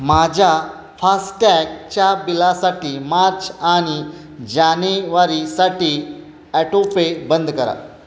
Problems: constant background noise